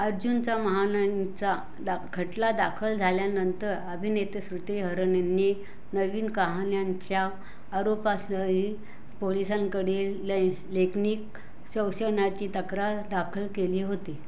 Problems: background sounds at intervals